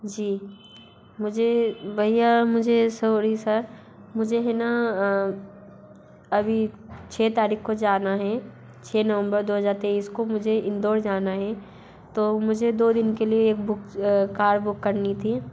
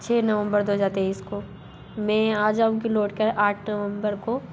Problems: background sounds at intervals